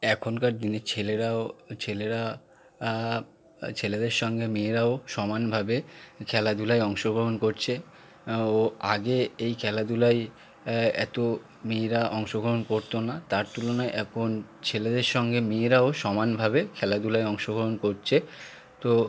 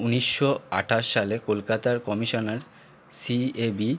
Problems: constant background noise